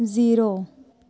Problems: none marked